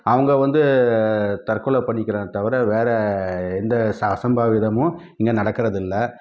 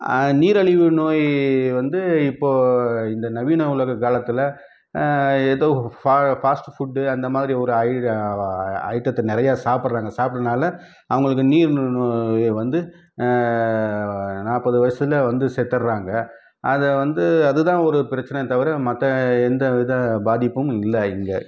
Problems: none marked